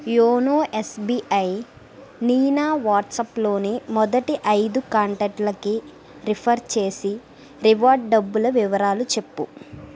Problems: constant background noise